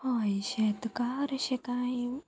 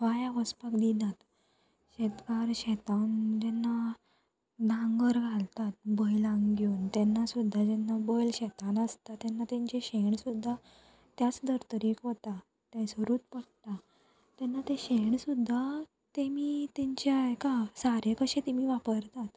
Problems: constant background noise